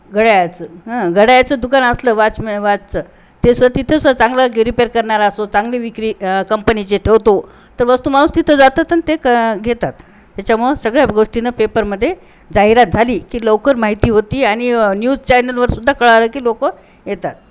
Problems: constant background noise